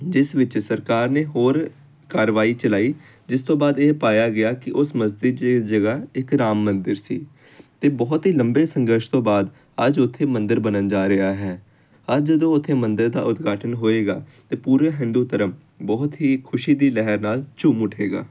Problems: constant background noise